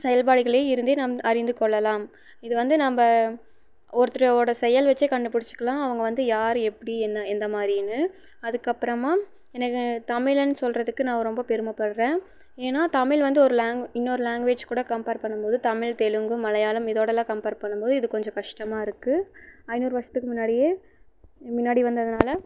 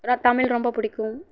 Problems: background sounds at intervals, low volume